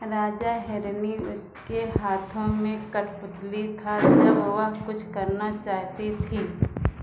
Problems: low volume